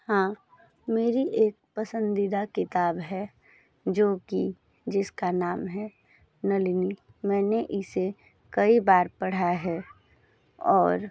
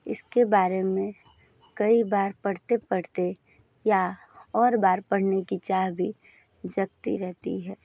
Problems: background sounds at intervals, background conversations at intervals